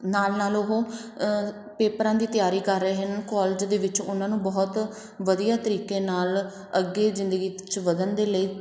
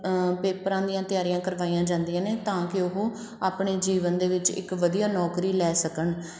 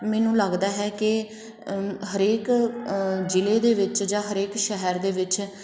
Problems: background sounds at intervals